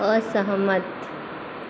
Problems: constant background noise